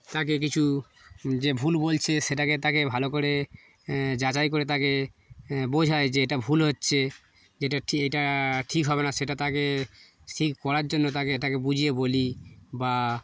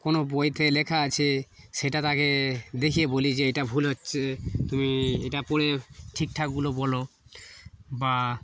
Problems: background sounds at intervals, background conversations at intervals